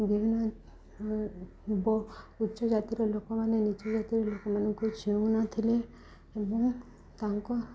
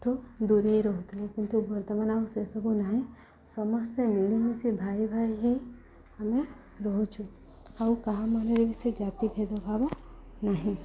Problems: continuous background conversations